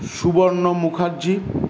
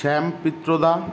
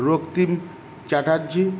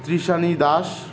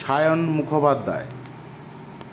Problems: none marked